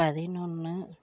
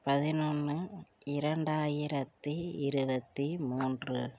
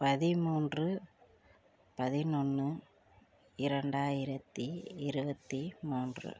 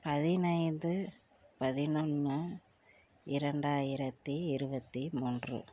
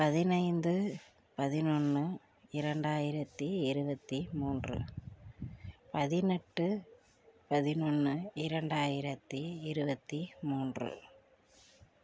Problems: low volume